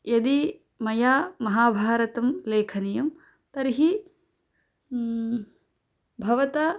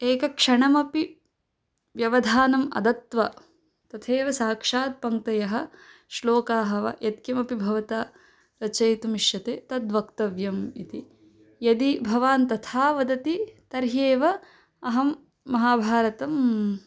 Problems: none marked